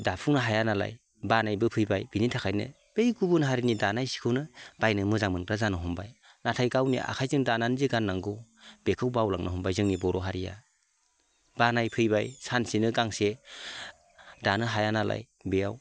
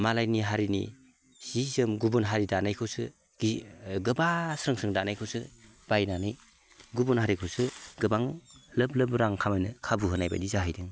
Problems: none marked